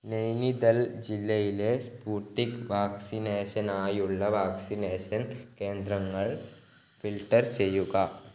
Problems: low volume